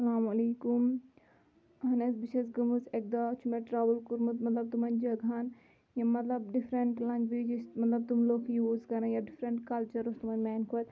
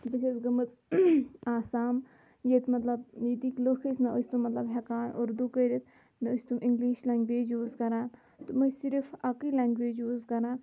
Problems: low volume